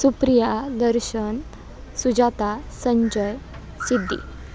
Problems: background sounds at intervals